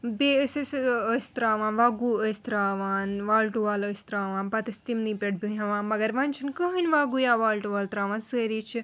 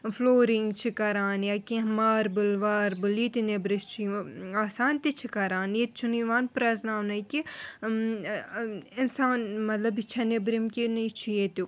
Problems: none marked